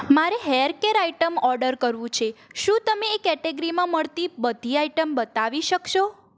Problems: constant background noise